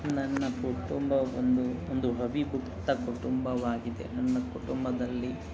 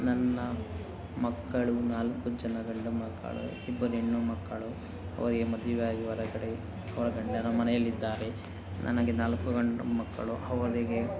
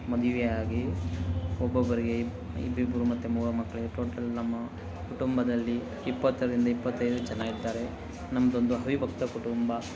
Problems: constant background noise